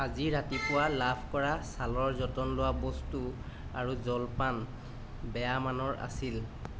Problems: none marked